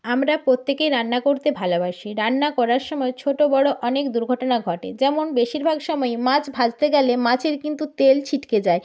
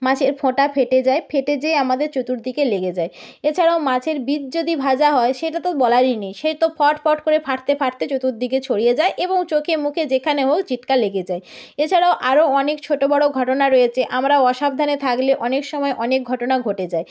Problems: none marked